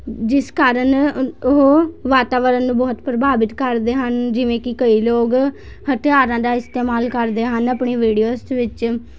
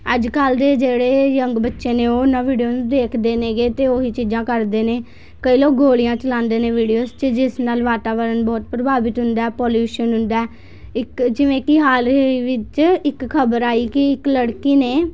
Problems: constant background noise, background conversations at intervals